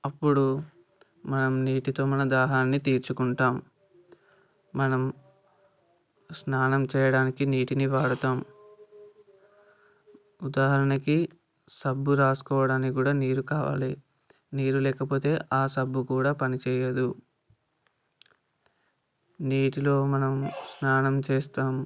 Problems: background sounds at intervals